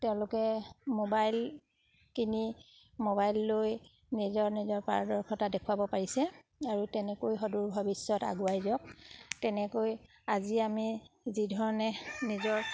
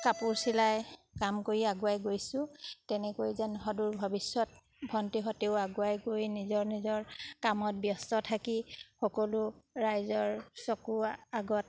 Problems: background sounds at intervals